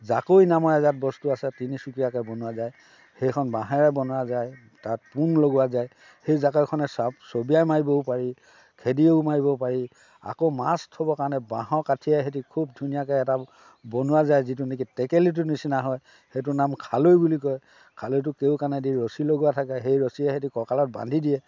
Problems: background sounds at intervals, background conversations at intervals